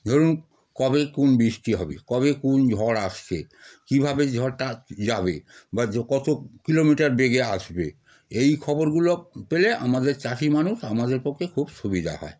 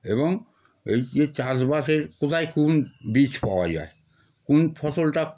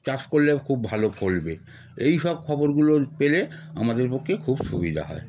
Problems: constant background noise